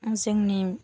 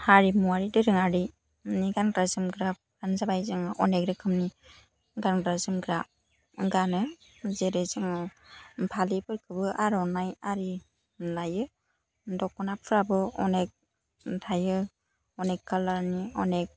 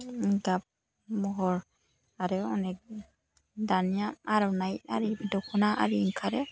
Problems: none marked